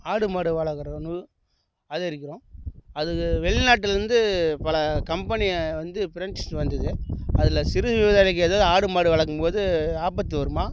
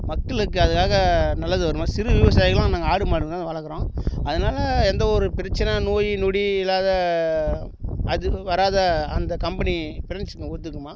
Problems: background sounds at intervals